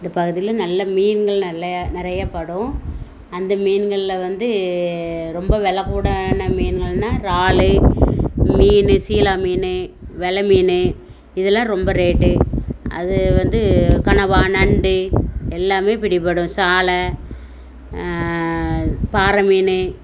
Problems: background sounds at intervals